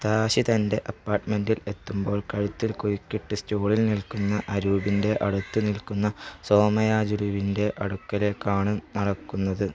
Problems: background sounds at intervals, low volume